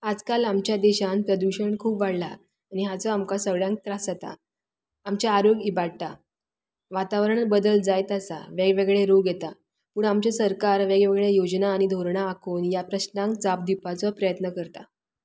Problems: constant background noise